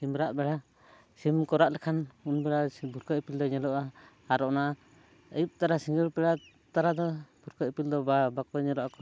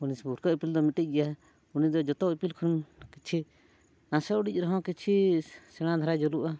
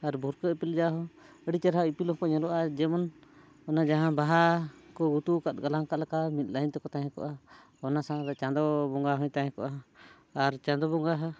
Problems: none marked